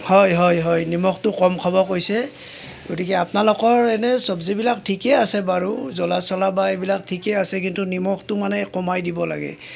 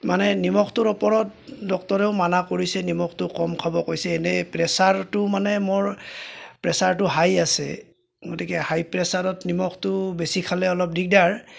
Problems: none marked